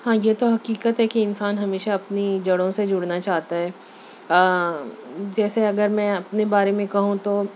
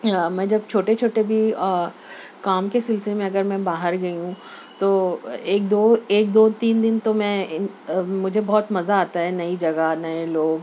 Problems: none marked